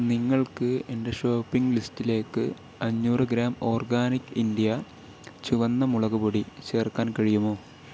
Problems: none marked